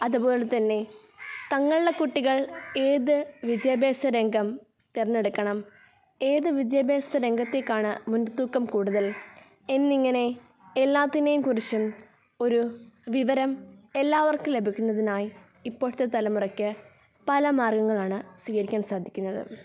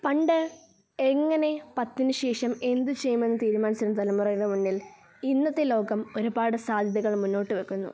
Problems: background conversations at intervals